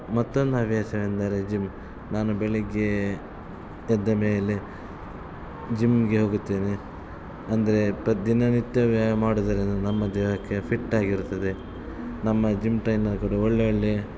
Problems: constant background noise